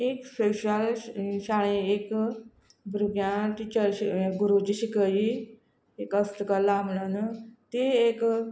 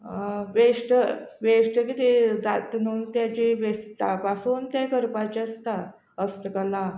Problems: none marked